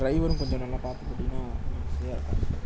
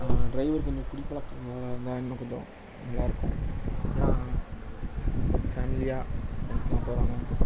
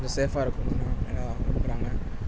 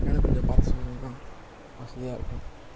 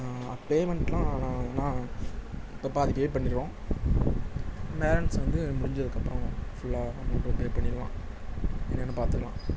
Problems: constant background noise